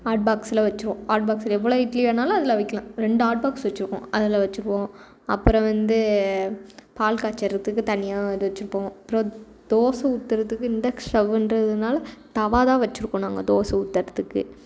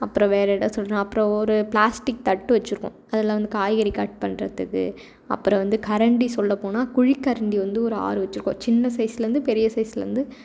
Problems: none marked